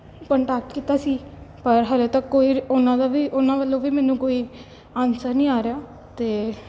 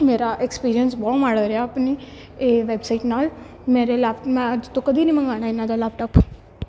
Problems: background sounds at intervals, background conversations at intervals